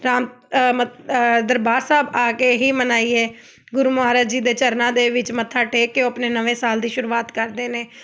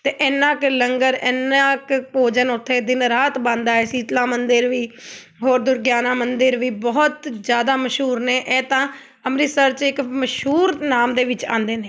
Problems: none marked